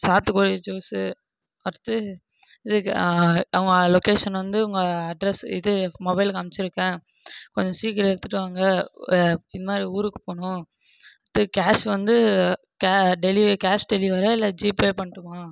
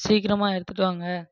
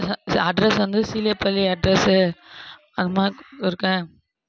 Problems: none marked